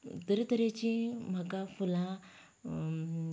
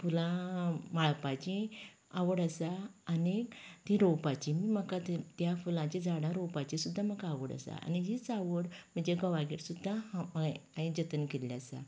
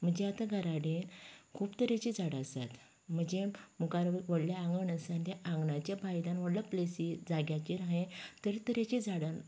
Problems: continuous background conversations